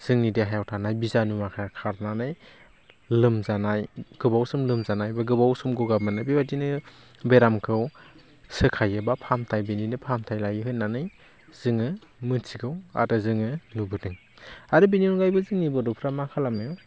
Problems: none marked